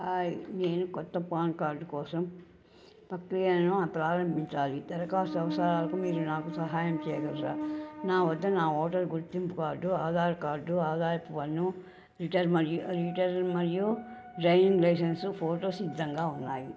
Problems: none marked